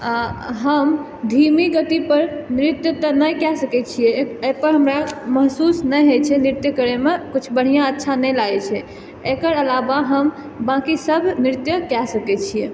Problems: none marked